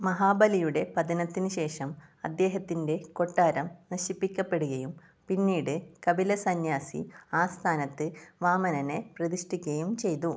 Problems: low volume